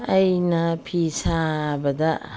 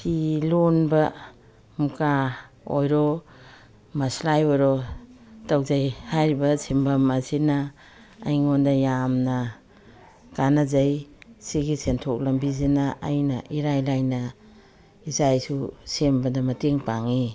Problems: none marked